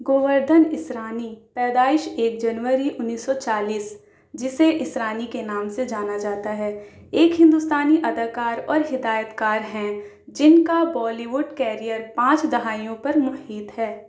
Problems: none marked